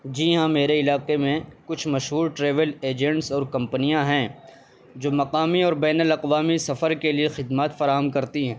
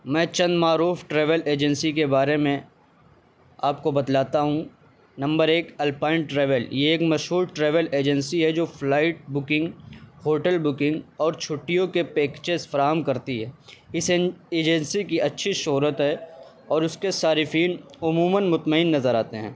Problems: constant background noise